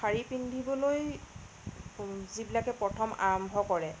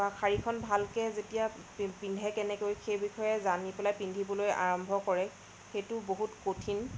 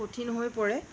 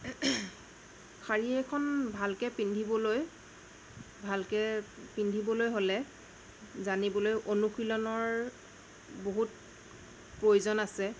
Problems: constant background noise, low volume